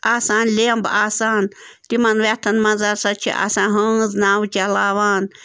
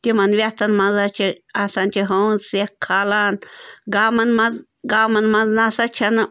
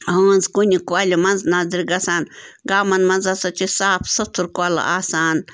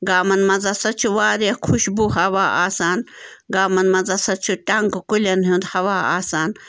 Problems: none marked